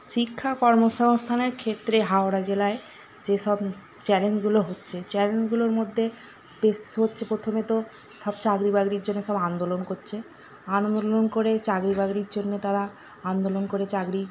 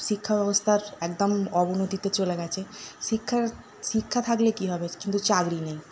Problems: none marked